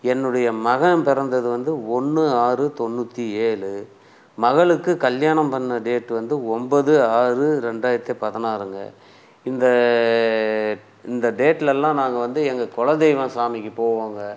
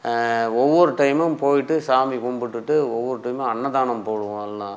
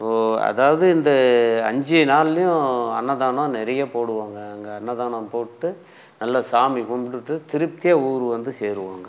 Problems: background sounds at intervals